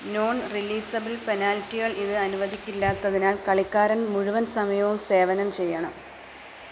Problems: none marked